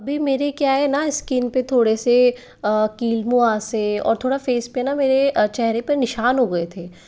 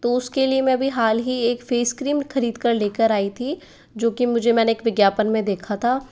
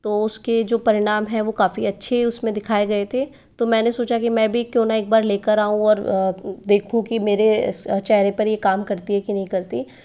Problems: none marked